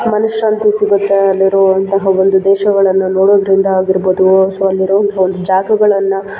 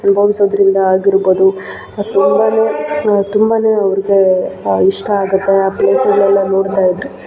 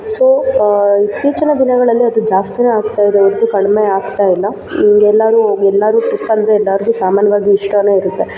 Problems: background sounds at intervals